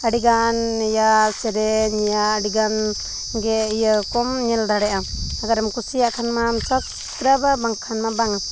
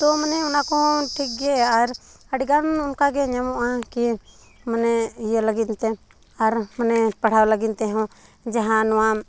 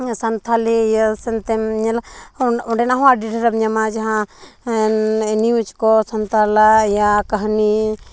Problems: background sounds at intervals